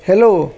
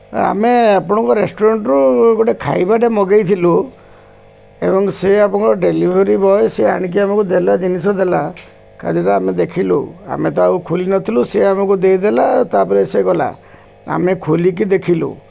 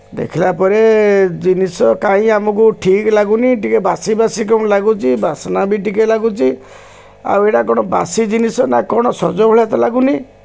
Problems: constant background noise